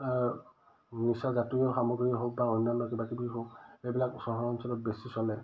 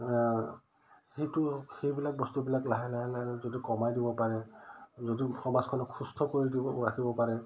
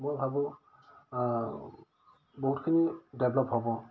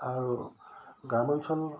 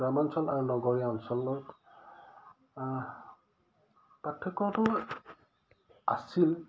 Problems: none marked